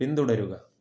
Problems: none marked